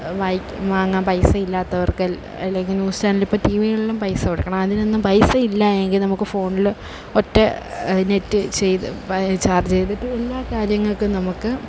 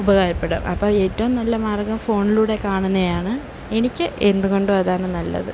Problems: none marked